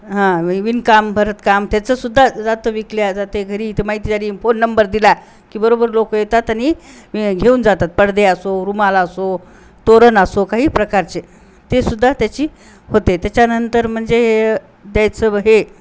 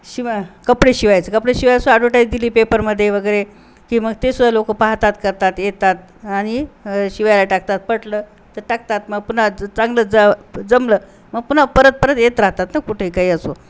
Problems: constant background noise